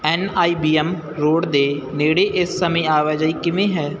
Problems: none marked